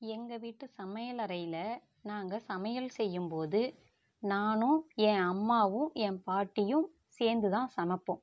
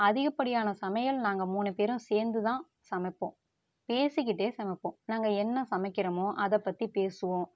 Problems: none marked